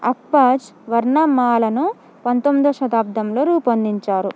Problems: none marked